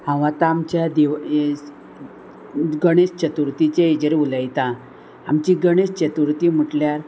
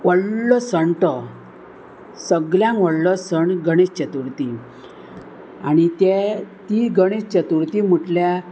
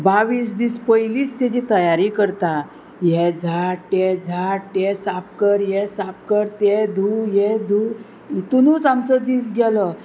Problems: constant background noise